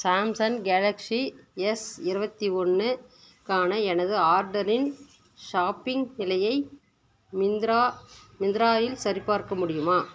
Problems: background sounds at intervals